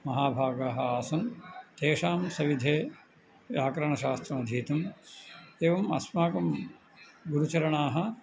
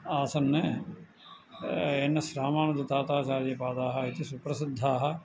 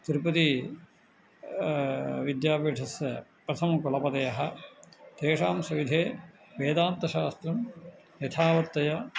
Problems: none marked